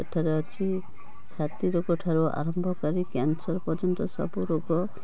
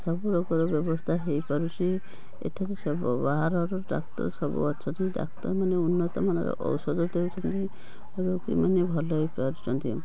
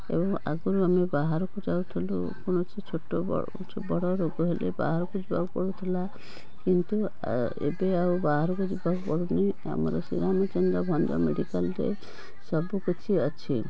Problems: constant background noise, background conversations at intervals